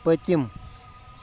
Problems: background sounds at intervals